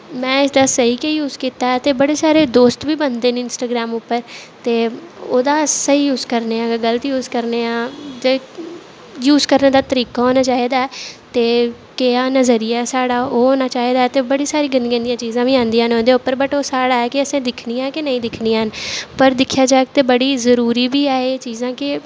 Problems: none marked